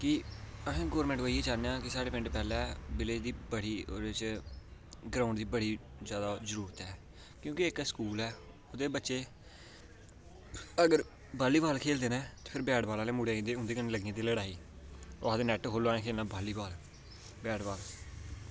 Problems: constant background noise